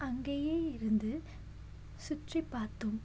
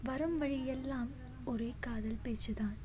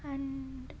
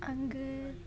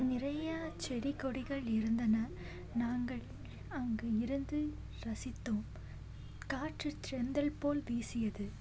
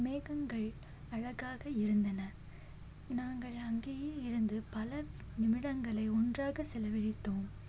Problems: background sounds at intervals, low volume